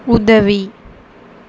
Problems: constant background noise